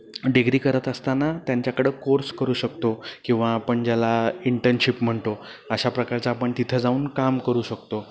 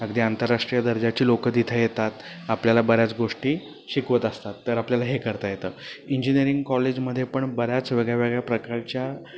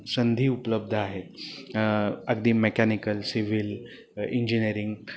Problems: constant background noise